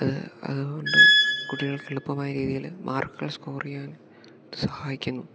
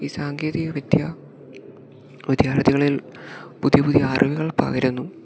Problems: background sounds at intervals, low volume